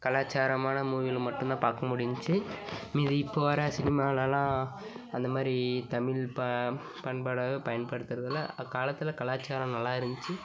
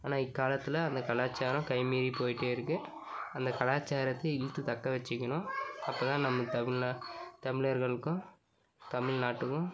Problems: constant background noise